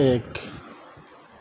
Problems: none marked